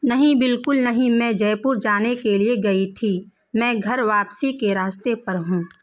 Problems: constant background noise